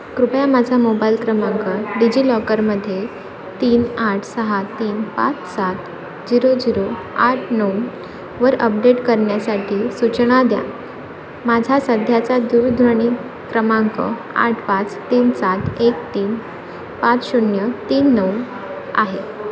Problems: constant background noise, continuous background conversations